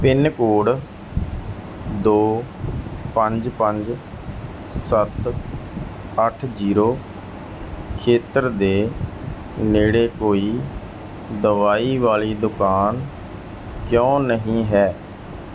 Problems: background sounds at intervals